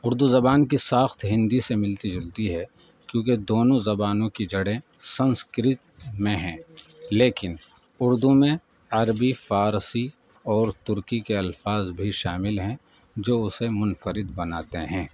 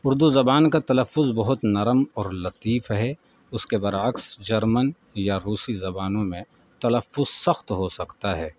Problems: background sounds at intervals, background conversations at intervals